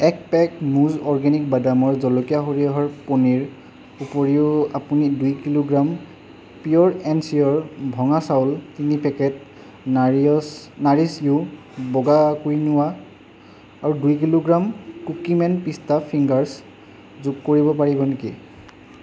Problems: constant background noise